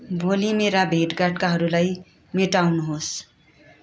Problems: continuous background conversations